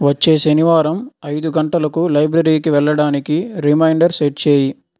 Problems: none marked